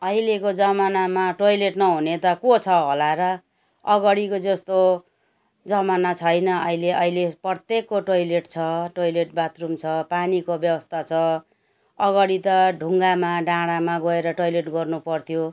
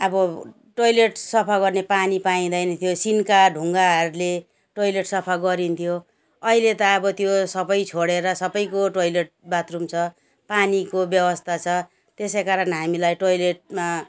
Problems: background sounds at intervals